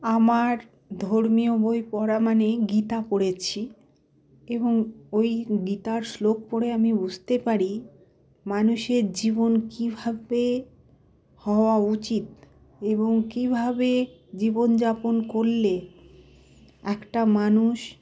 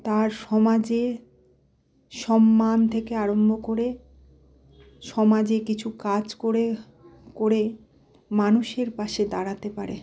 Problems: constant background noise, background conversations at intervals